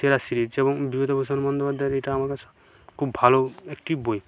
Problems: none marked